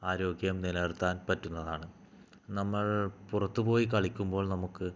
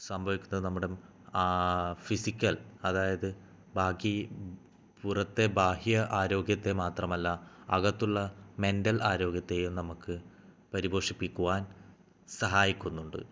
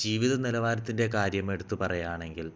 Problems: low volume